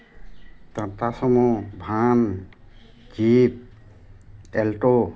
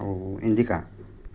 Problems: constant background noise